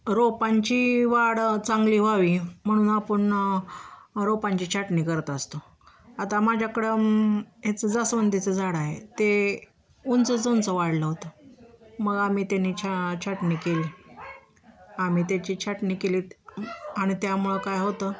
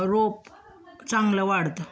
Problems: constant background noise, continuous background conversations